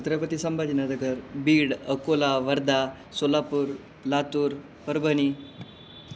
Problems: background sounds at intervals